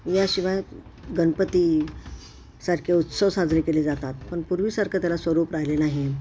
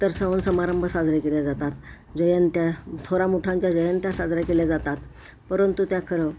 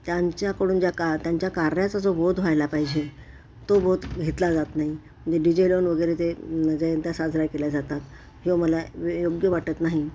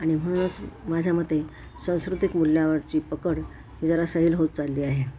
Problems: constant background noise